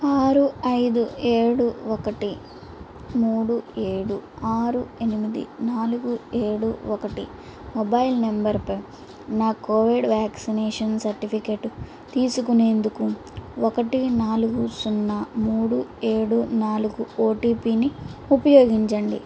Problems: constant background noise